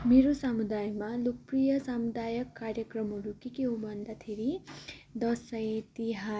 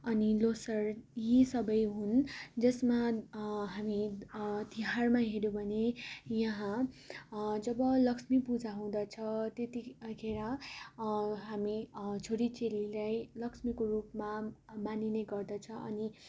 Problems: constant background noise